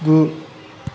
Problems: none marked